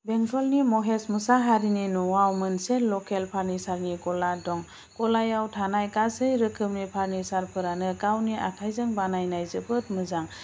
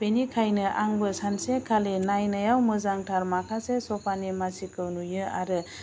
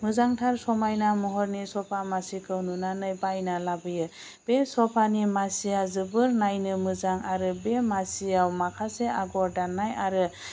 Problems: constant background noise